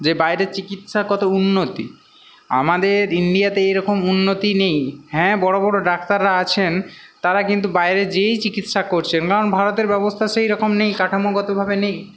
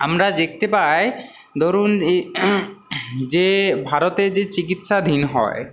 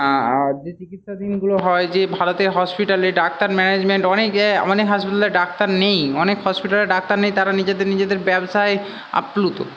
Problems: constant background noise